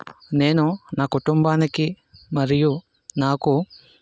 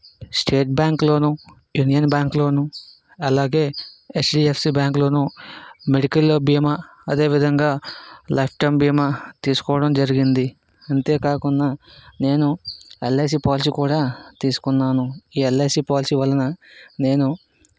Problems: constant background noise